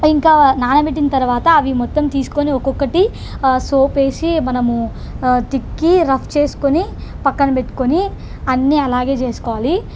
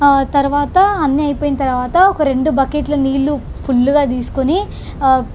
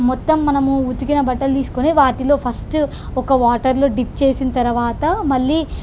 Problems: constant background noise